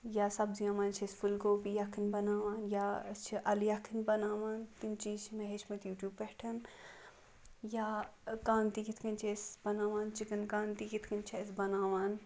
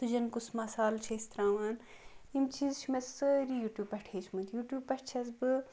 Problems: background sounds at intervals